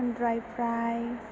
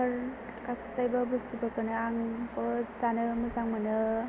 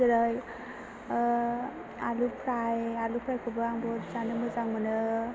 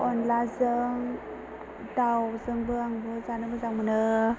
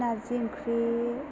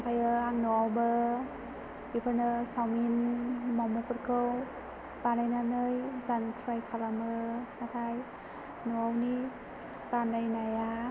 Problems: constant background noise, low volume